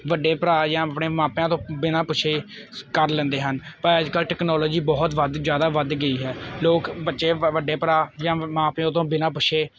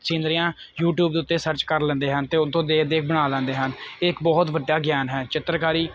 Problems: none marked